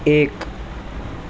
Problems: constant background noise